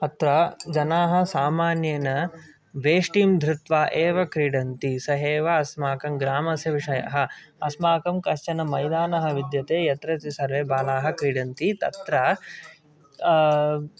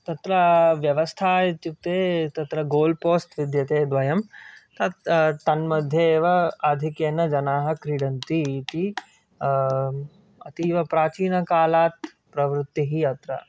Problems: background conversations at intervals